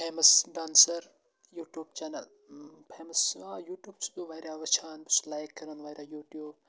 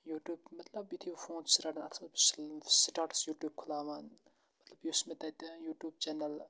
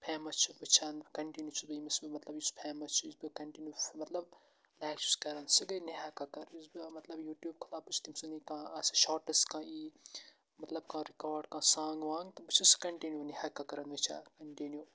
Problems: constant background noise, low volume